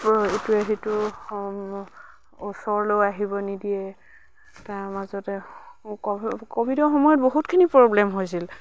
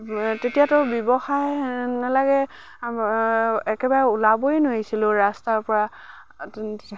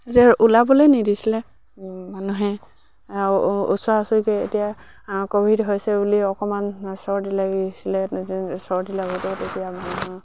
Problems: background sounds at intervals